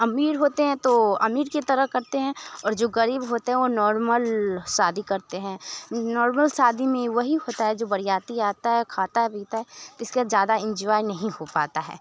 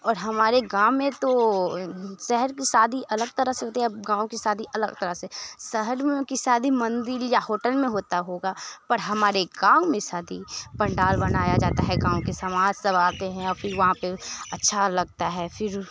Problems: constant background noise, background conversations at intervals